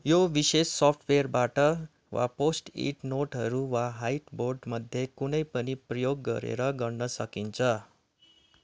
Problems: background sounds at intervals